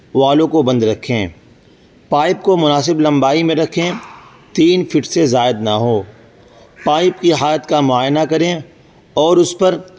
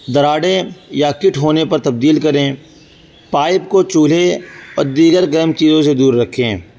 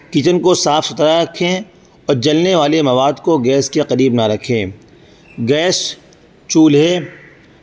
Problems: constant background noise